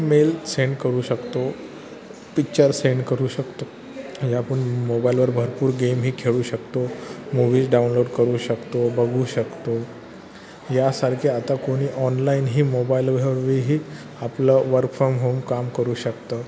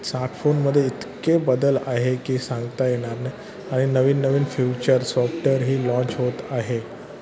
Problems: constant background noise, continuous background conversations